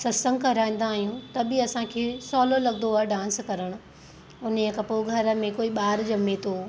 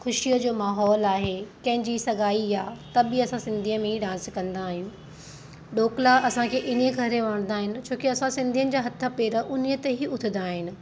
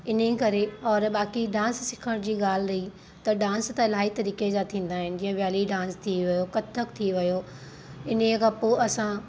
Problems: constant background noise